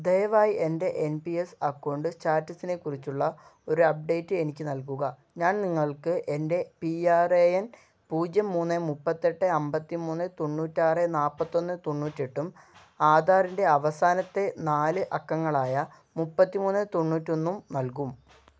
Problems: none marked